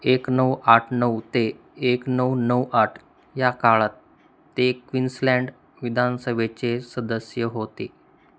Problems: constant background noise